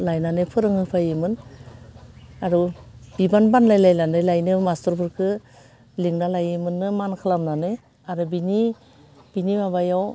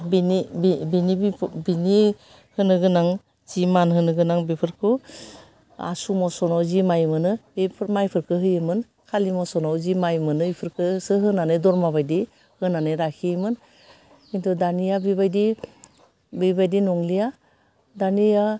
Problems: none marked